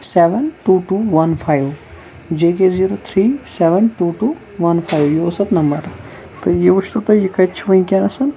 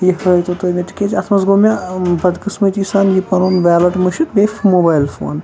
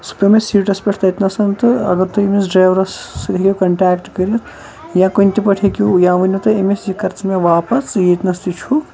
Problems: background sounds at intervals, background conversations at intervals